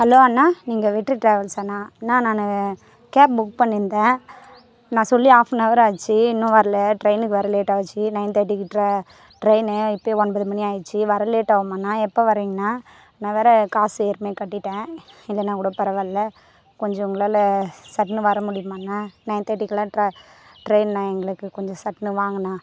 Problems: background sounds at intervals